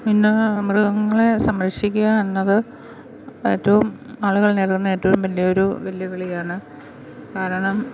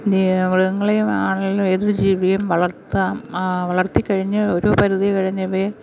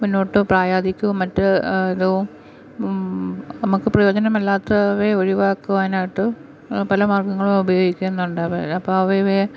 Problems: constant background noise